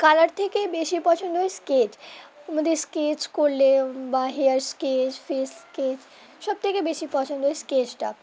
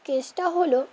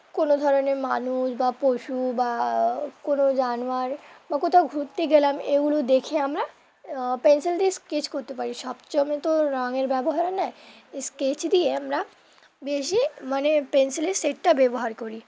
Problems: none marked